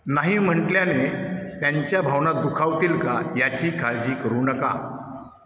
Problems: echo